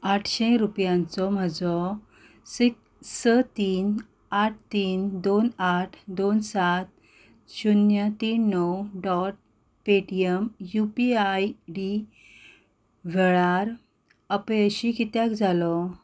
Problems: background sounds at intervals